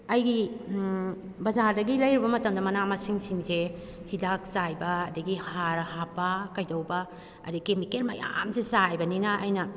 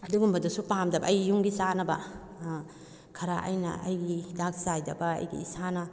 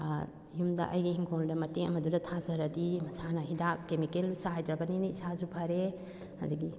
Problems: none marked